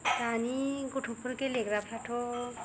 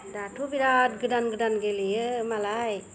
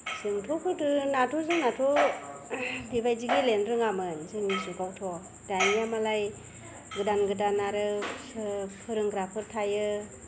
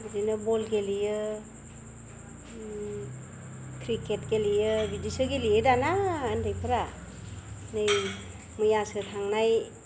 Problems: none marked